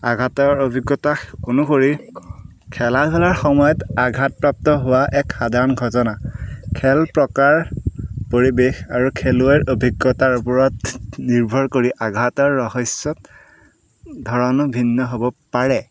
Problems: background sounds at intervals